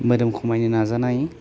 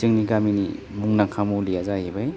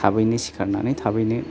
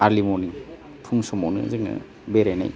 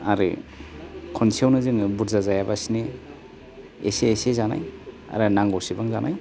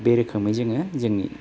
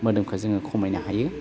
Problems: none marked